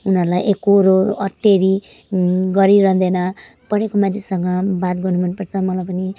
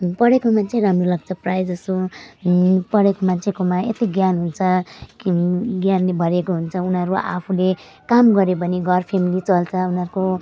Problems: none marked